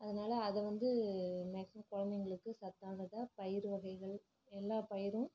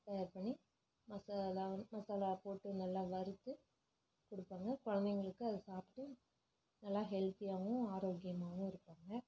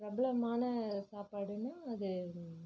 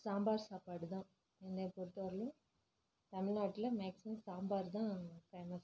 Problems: low volume